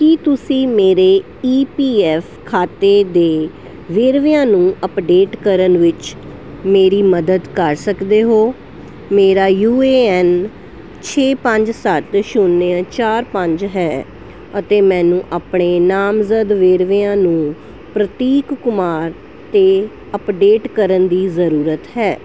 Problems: constant background noise